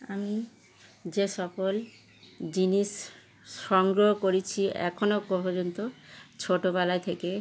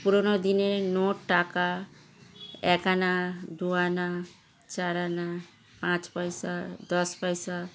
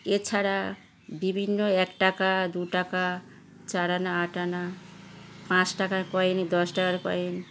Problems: background sounds at intervals